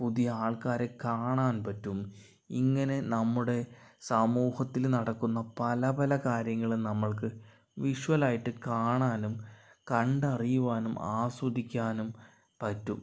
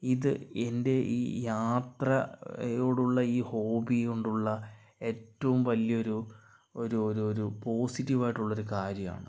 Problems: low volume